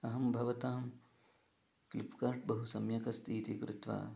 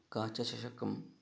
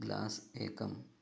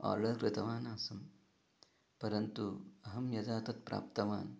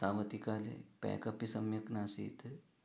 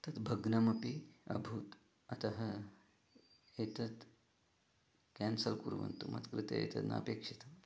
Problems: low volume